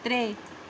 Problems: none marked